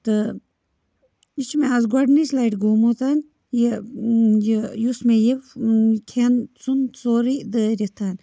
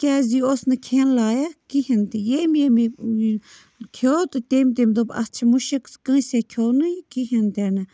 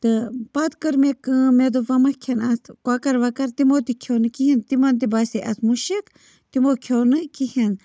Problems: background sounds at intervals